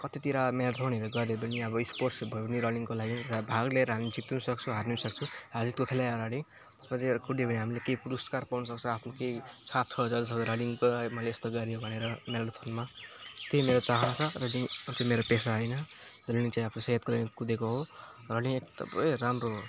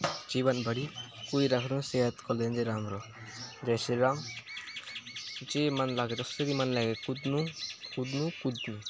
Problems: constant background noise